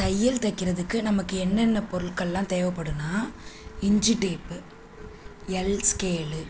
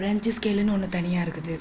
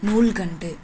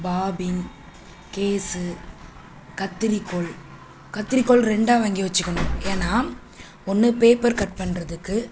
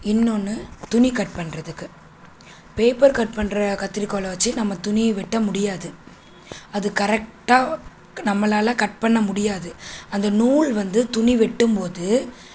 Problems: constant background noise